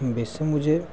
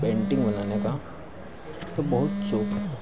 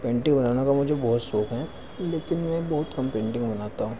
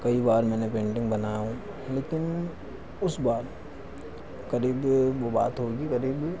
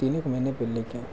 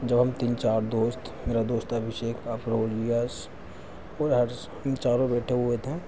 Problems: none marked